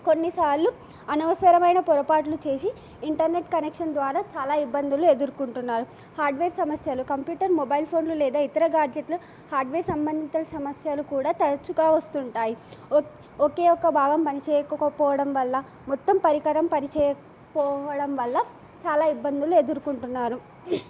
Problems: none marked